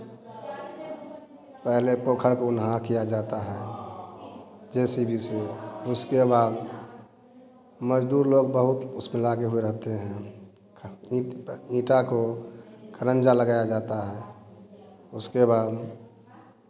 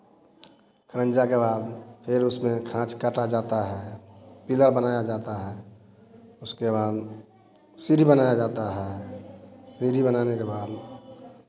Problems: none marked